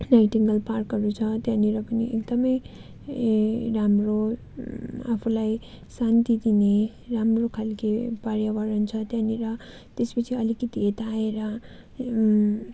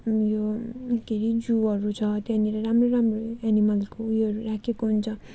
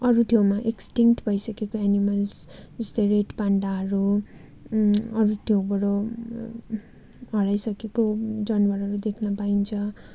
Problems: constant background noise